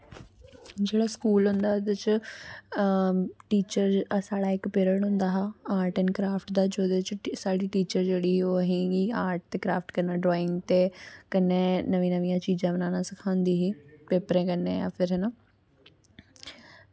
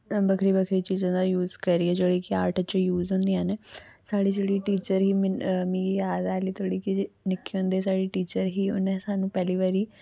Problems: none marked